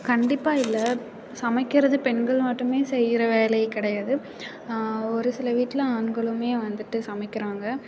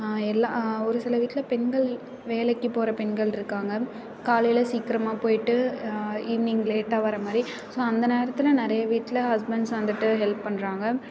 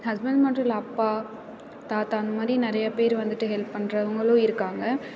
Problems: constant background noise, continuous background conversations